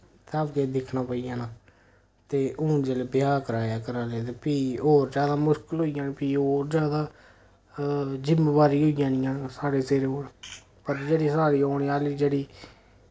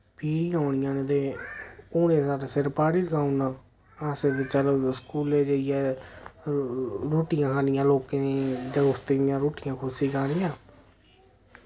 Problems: none marked